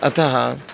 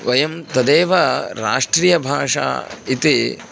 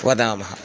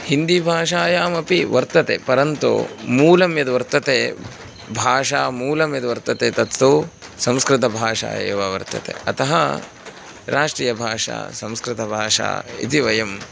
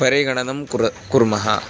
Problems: constant background noise